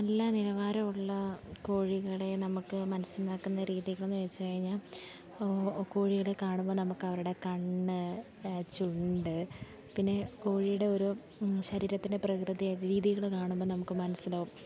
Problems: none marked